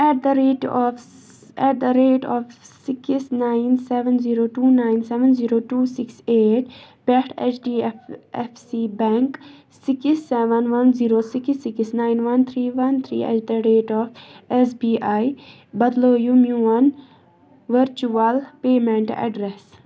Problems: background sounds at intervals, background conversations at intervals